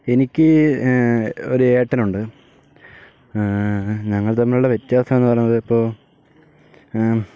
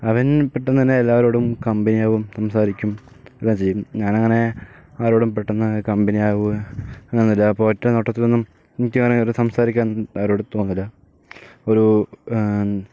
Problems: none marked